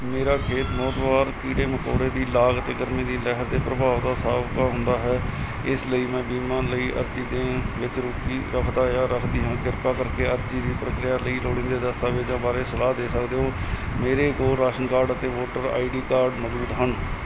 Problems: constant background noise